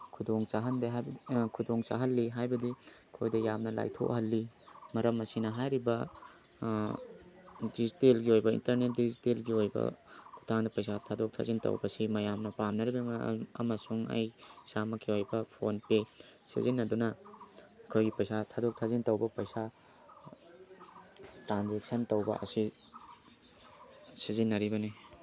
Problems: background conversations at intervals